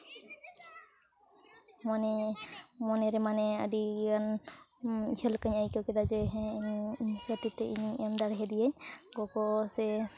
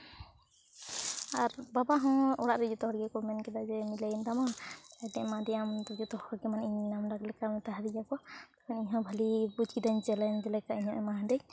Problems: none marked